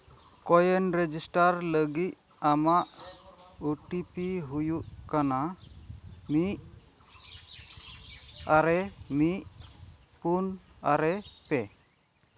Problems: none marked